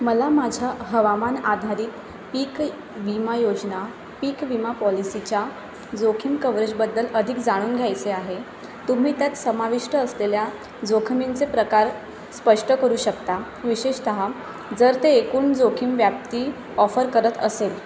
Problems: constant background noise